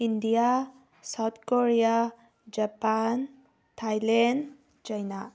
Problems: none marked